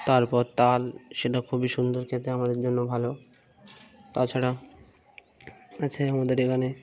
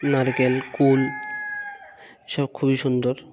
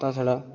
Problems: background sounds at intervals